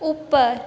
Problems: constant background noise